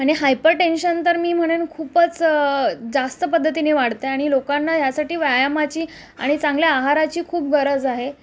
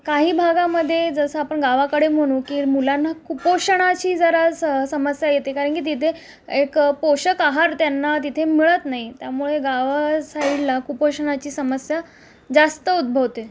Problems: constant background noise, background conversations at intervals